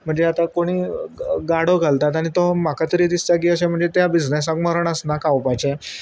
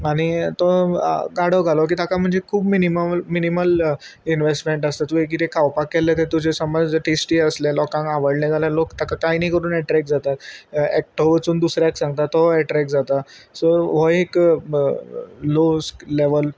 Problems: constant background noise